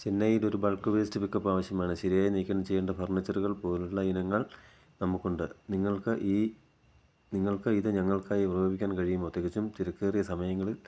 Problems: low volume